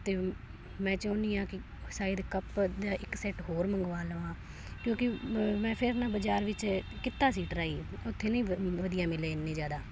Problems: none marked